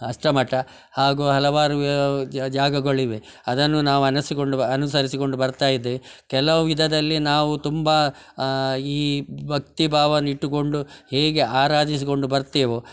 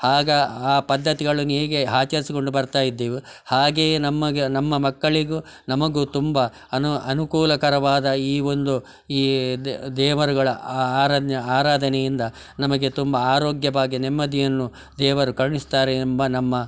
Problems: background sounds at intervals